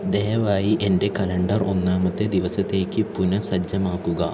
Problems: low volume